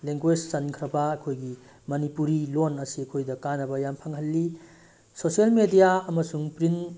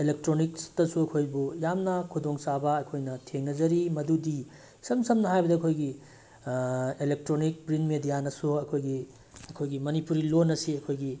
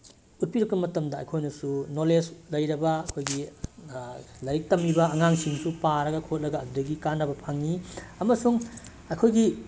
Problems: background sounds at intervals